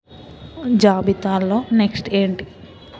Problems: constant background noise